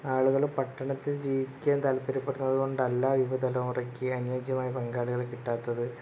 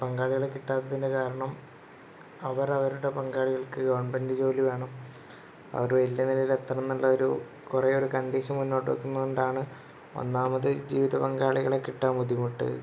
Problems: constant background noise